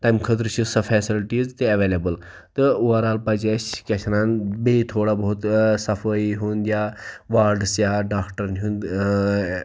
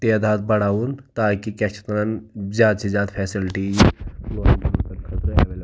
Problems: background sounds at intervals